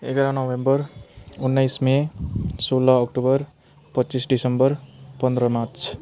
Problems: constant background noise